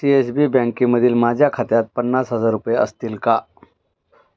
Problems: none marked